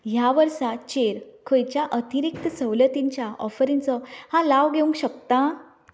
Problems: background conversations at intervals